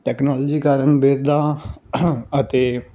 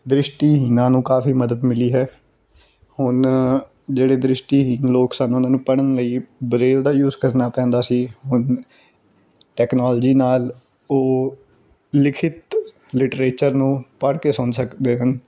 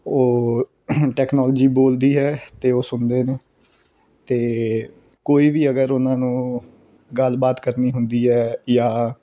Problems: background sounds at intervals